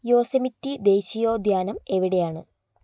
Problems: none marked